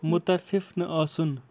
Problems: constant background noise